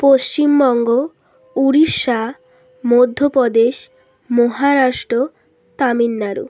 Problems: constant background noise